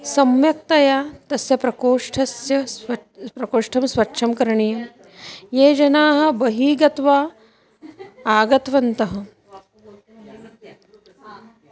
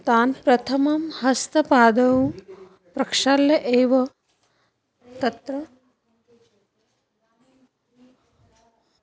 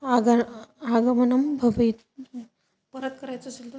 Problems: continuous background conversations